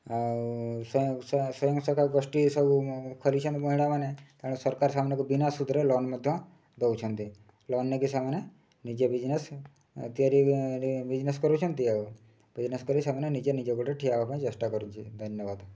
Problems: low volume